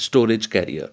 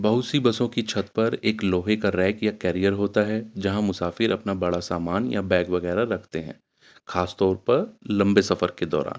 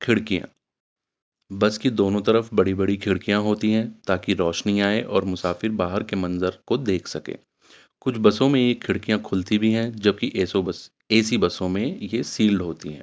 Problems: none marked